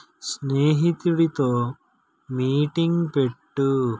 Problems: none marked